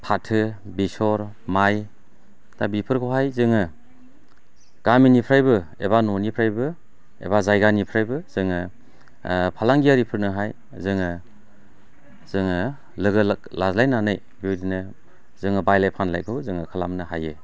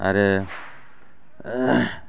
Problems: none marked